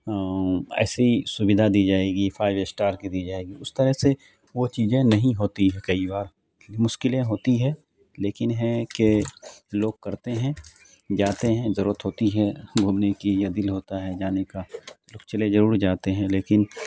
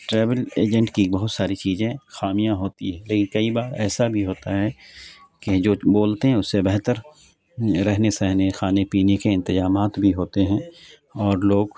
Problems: none marked